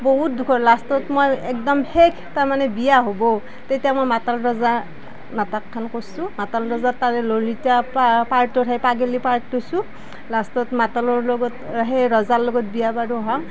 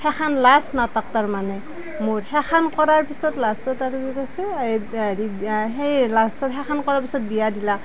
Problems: none marked